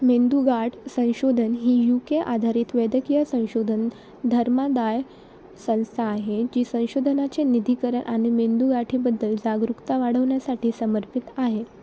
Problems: constant background noise